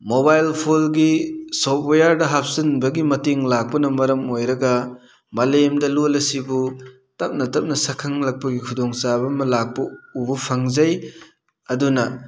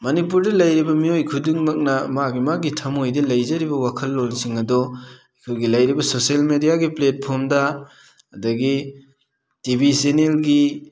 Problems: none marked